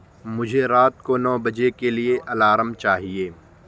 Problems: constant background noise